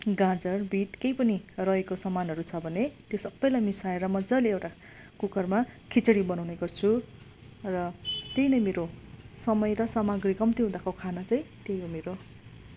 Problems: constant background noise